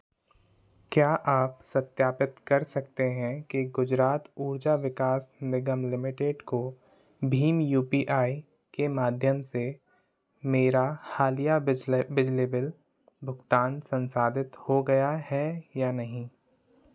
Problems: constant background noise